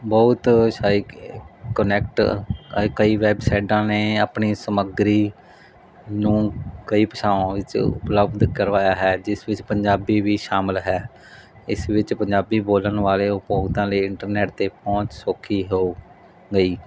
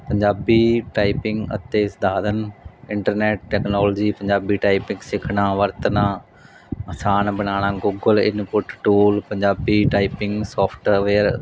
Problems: background sounds at intervals